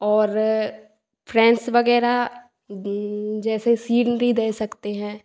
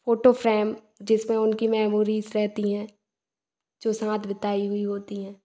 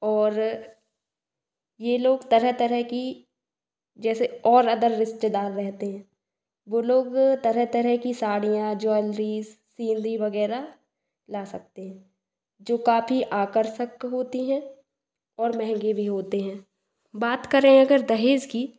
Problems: echo